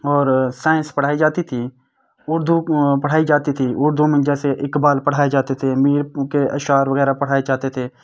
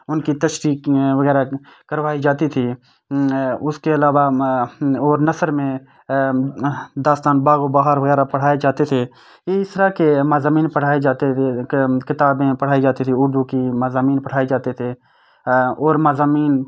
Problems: constant background noise